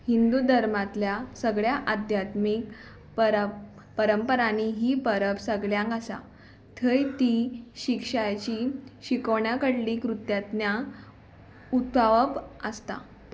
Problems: background sounds at intervals